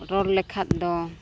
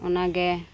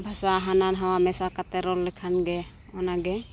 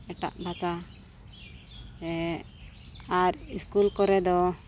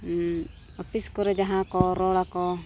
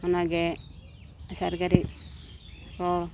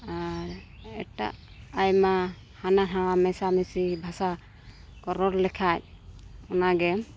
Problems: background sounds at intervals